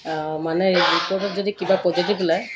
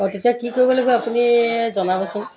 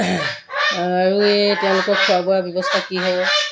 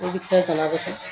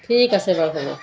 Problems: background sounds at intervals, background conversations at intervals